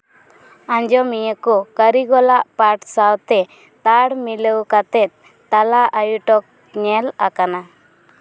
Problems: none marked